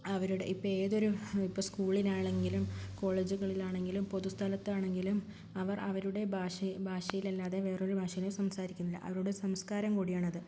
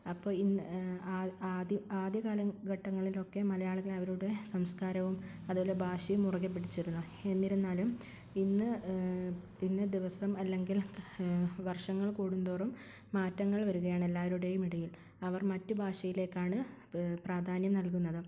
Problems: none marked